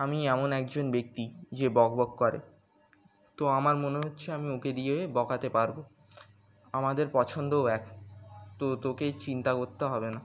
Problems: none marked